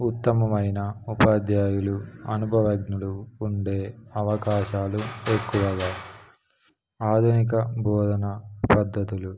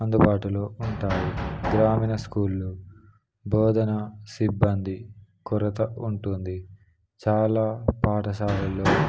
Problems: none marked